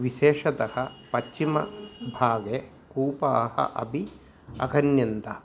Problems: none marked